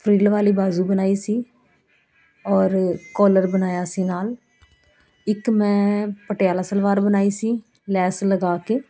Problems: continuous background conversations